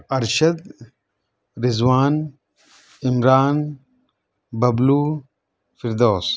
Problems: none marked